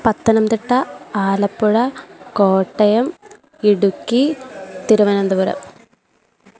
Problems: constant background noise